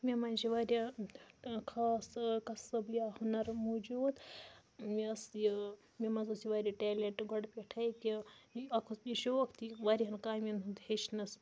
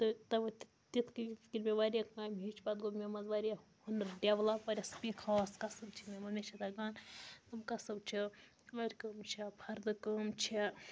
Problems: low volume